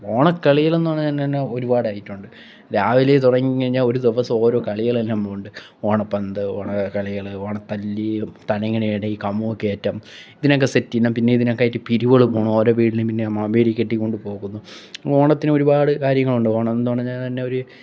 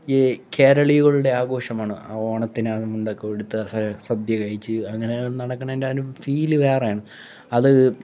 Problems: background sounds at intervals